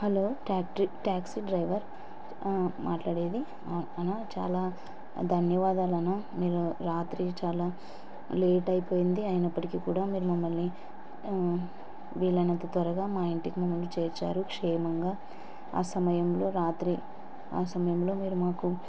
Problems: constant background noise